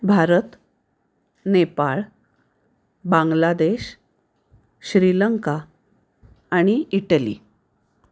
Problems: none marked